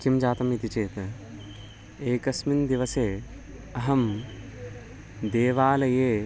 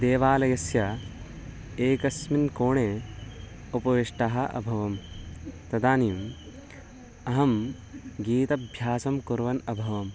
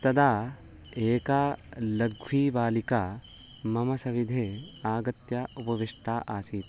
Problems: background sounds at intervals